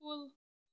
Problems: background sounds at intervals, low volume